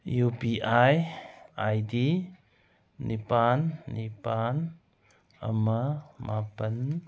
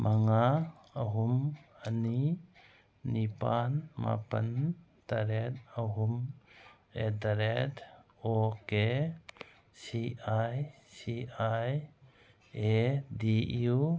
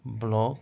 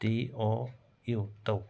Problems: background sounds at intervals